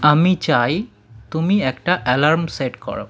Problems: background conversations at intervals